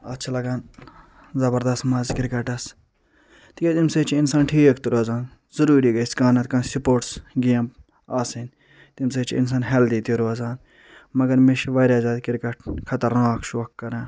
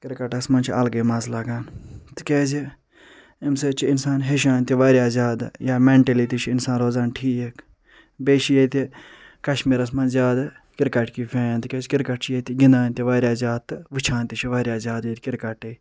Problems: none marked